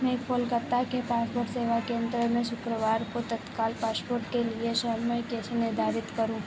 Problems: constant background noise